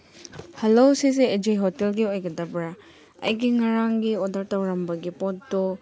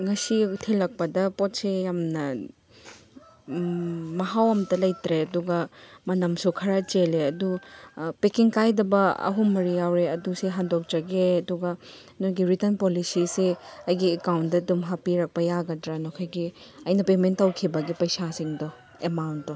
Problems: background sounds at intervals